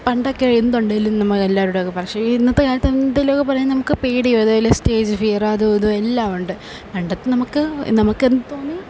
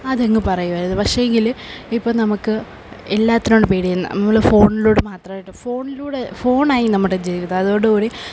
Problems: none marked